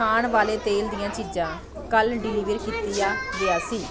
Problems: continuous background conversations